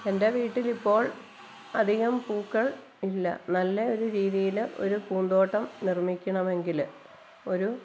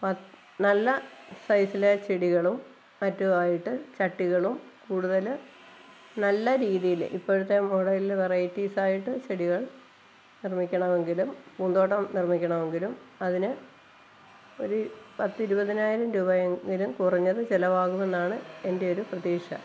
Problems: constant background noise, low volume